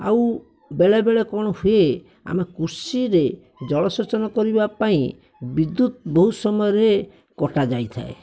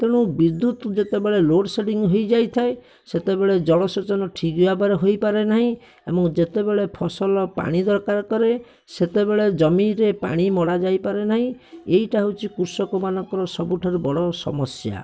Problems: none marked